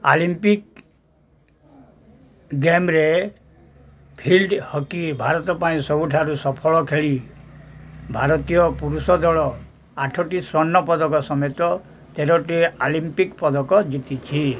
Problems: none marked